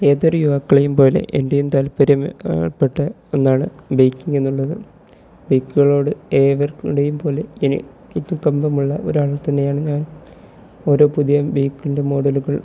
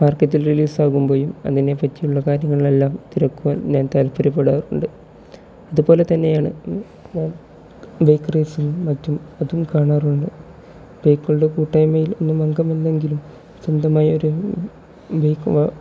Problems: background sounds at intervals, low volume